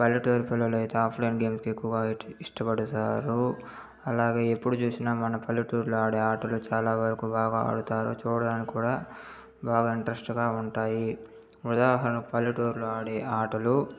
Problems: background sounds at intervals